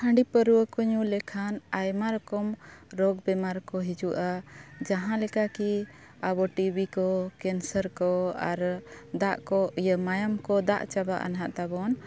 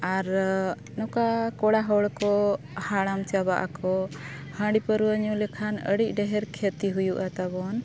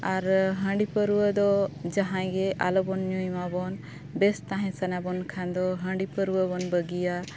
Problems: constant background noise